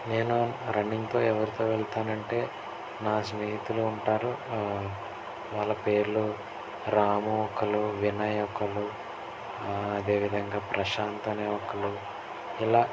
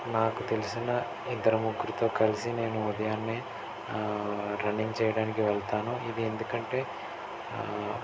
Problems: constant background noise